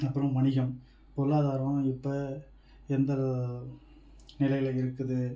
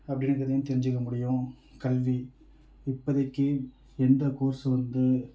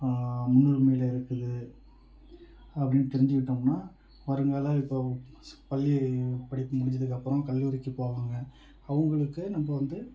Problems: none marked